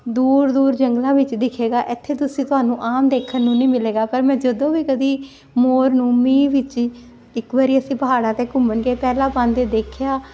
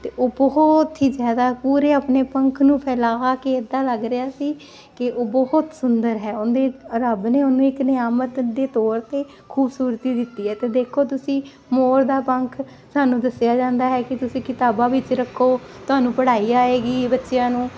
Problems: none marked